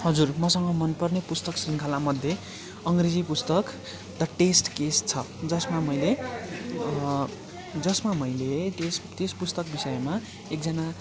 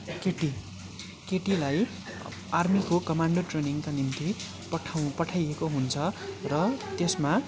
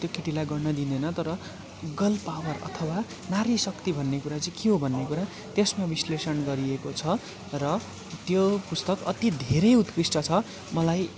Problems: continuous background conversations